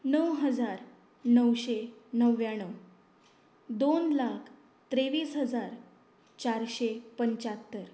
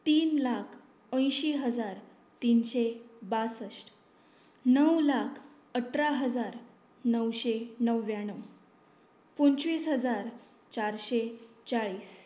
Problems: constant background noise